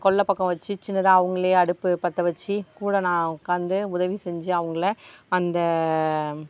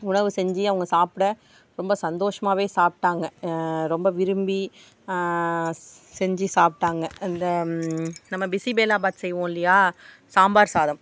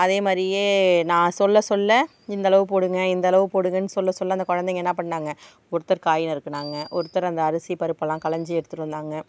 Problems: background sounds at intervals